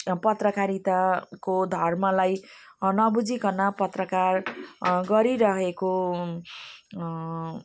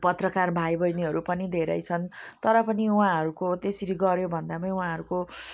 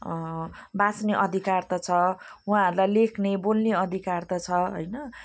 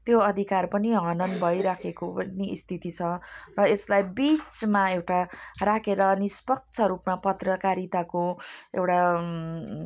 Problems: none marked